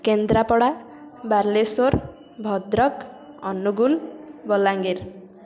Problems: constant background noise